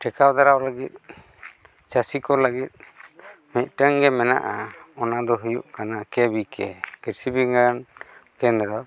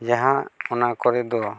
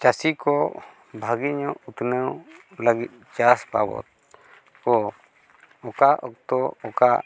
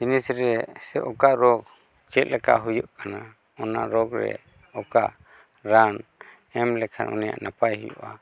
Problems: constant background noise, background conversations at intervals